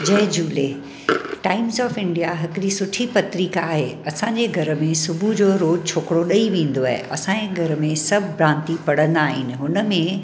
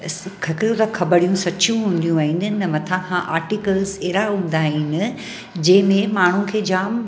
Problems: constant background noise, echo